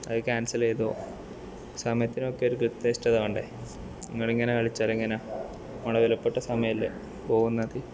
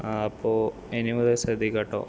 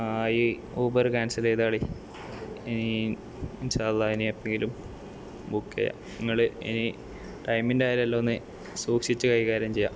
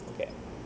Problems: constant background noise